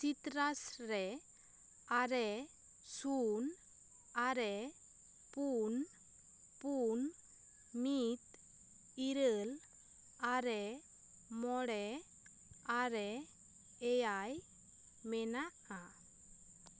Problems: constant background noise